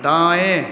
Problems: constant background noise